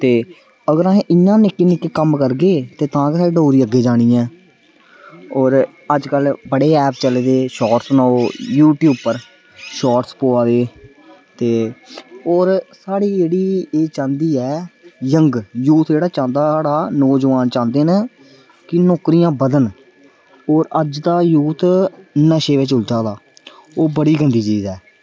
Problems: none marked